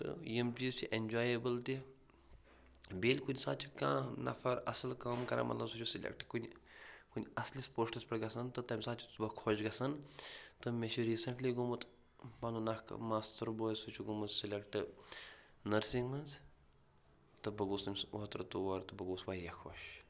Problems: none marked